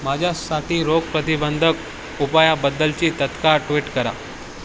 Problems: constant background noise